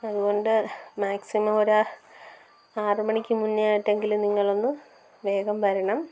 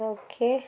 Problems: background sounds at intervals, low volume